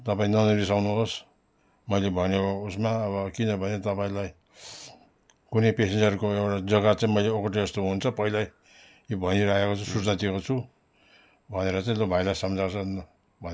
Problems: none marked